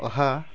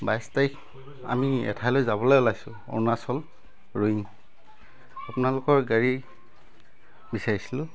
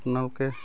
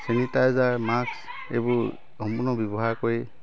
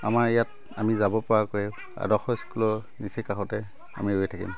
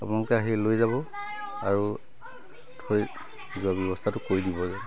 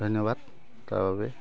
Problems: constant background noise, continuous background conversations